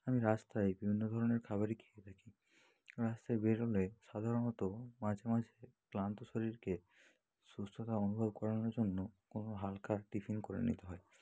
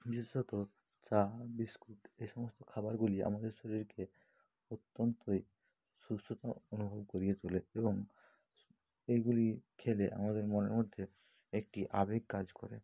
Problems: low volume